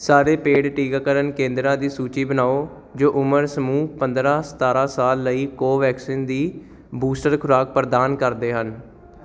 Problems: none marked